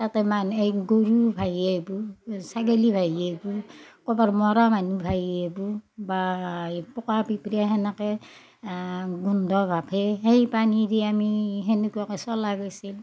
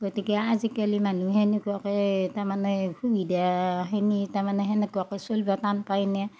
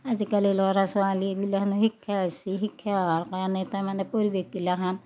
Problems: background sounds at intervals, background conversations at intervals